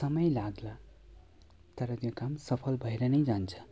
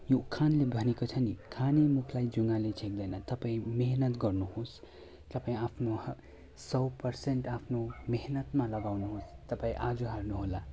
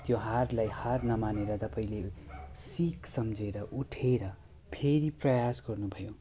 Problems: constant background noise